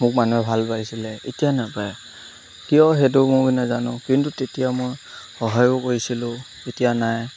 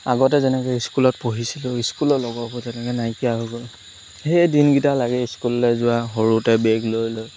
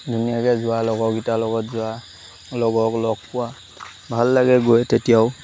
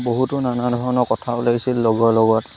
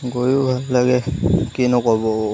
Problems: constant background noise